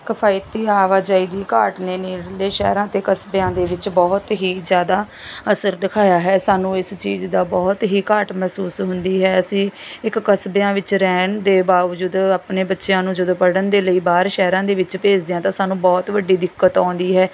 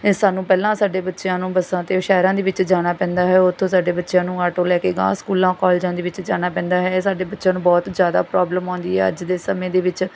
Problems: none marked